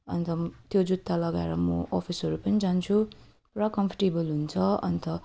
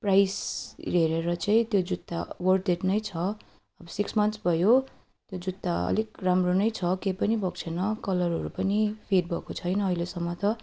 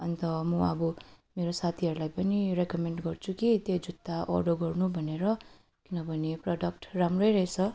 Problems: none marked